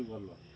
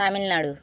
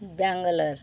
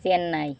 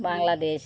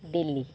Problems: none marked